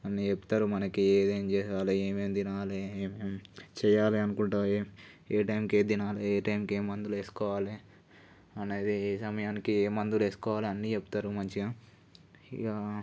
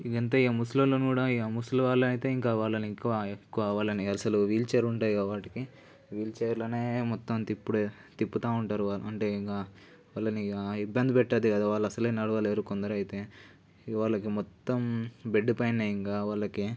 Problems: none marked